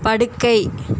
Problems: constant background noise